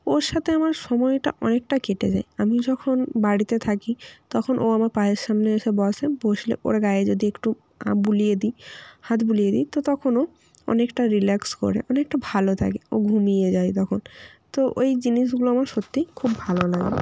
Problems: constant background noise